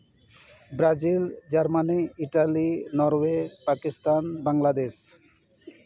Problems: background conversations at intervals